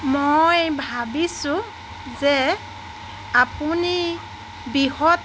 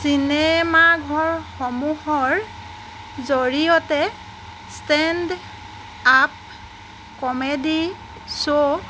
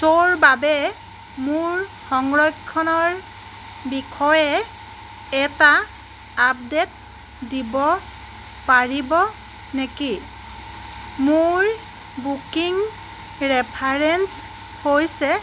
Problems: constant background noise, background conversations at intervals